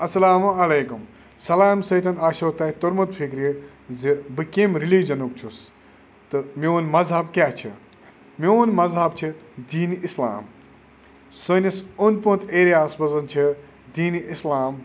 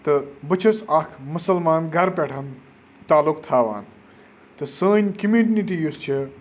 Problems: none marked